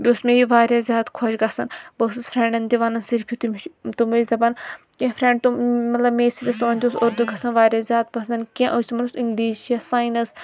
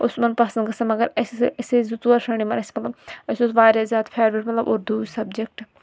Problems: none marked